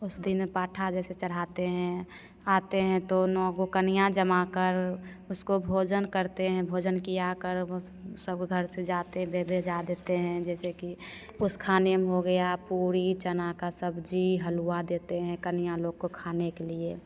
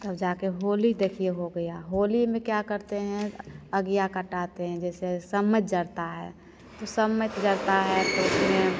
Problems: constant background noise, echo